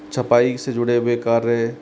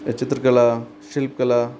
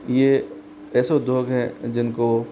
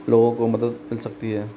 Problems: constant background noise